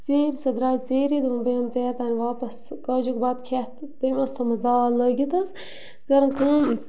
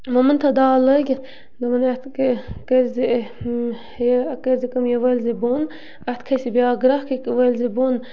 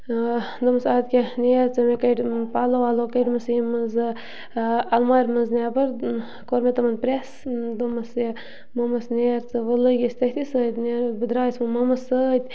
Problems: background sounds at intervals